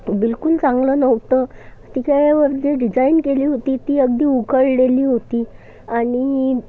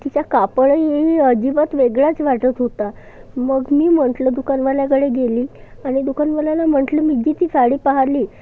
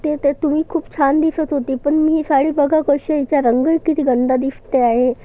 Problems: constant background noise, background conversations at intervals